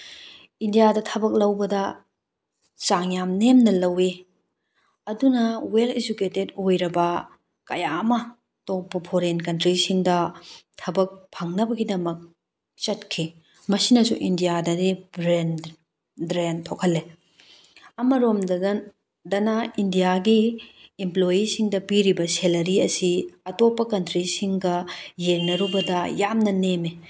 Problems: background sounds at intervals